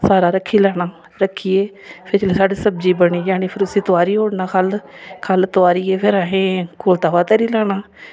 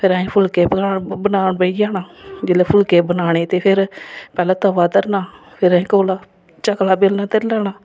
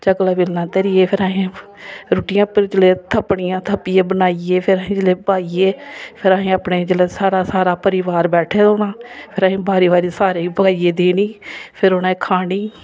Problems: none marked